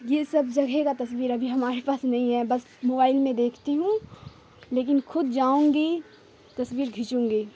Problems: constant background noise